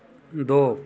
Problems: none marked